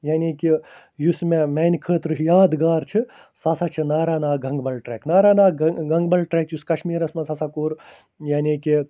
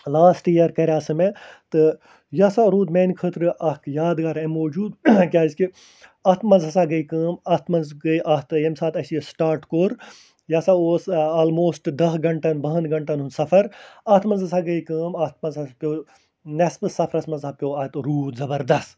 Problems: none marked